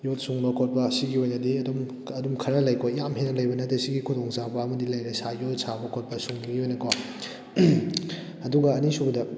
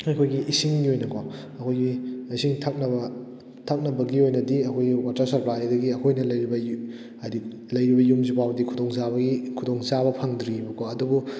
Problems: none marked